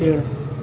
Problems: none marked